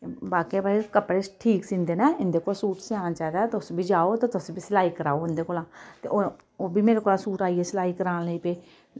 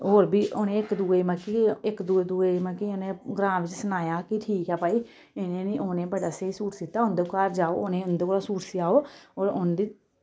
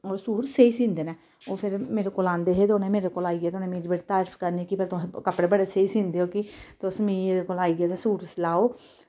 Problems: background sounds at intervals